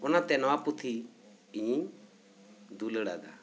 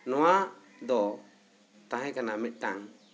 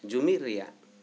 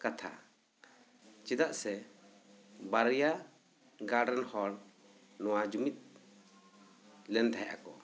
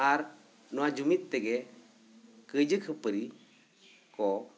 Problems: none marked